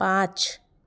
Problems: background sounds at intervals